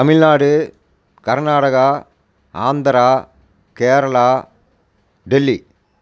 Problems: constant background noise